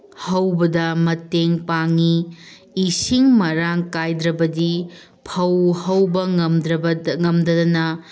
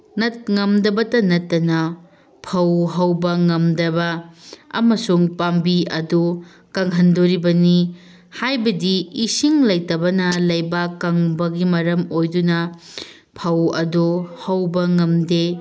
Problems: background sounds at intervals